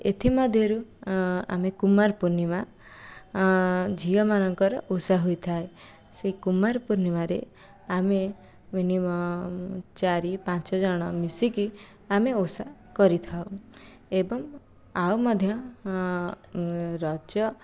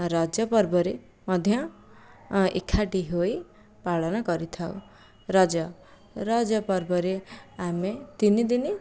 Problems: low volume